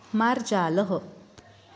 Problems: constant background noise